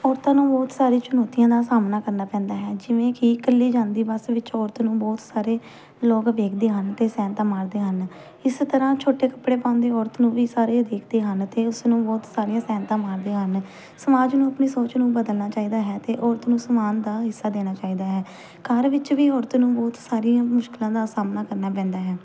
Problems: background sounds at intervals